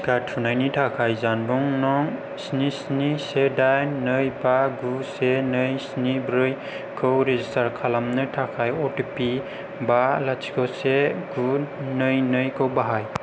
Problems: none marked